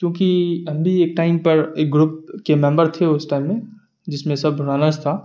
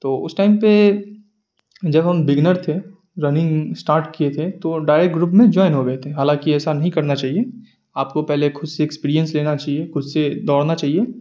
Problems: none marked